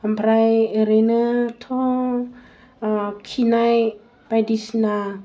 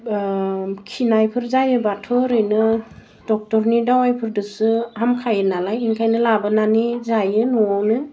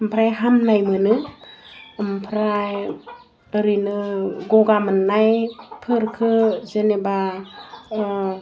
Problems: none marked